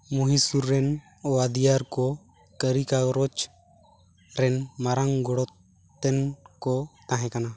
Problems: background sounds at intervals